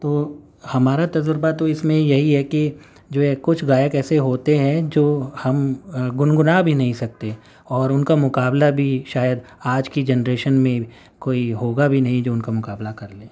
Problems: none marked